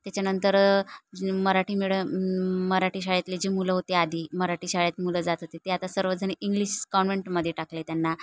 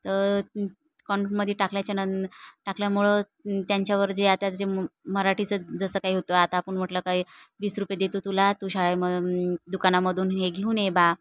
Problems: none marked